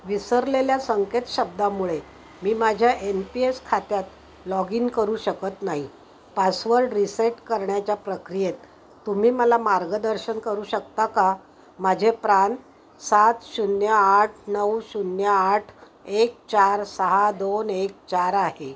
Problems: background sounds at intervals